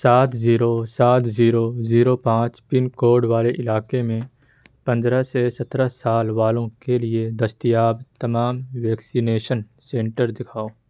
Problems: none marked